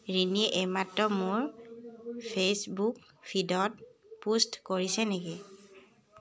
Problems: background sounds at intervals, background conversations at intervals